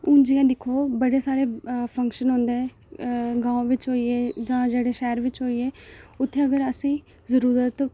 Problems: none marked